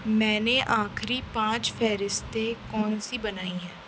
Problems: constant background noise